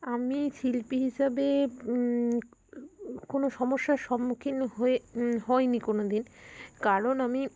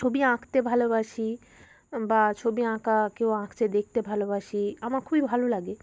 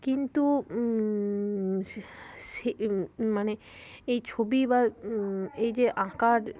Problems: background sounds at intervals